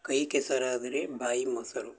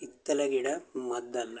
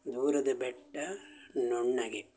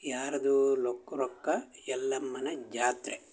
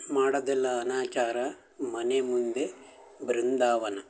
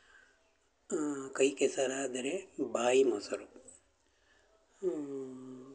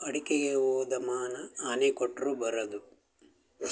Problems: background sounds at intervals